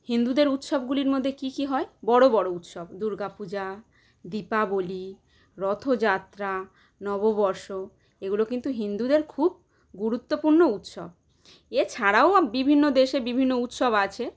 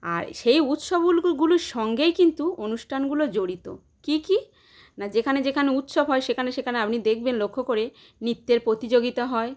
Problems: none marked